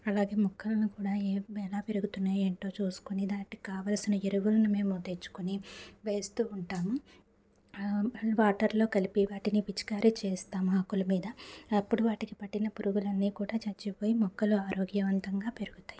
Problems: constant background noise